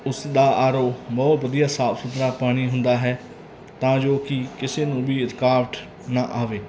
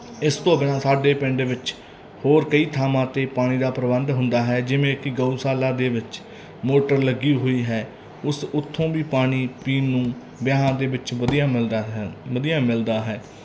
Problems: none marked